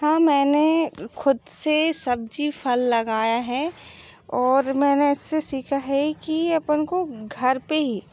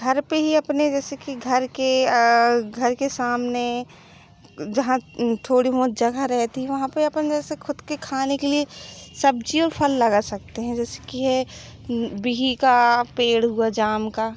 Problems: background sounds at intervals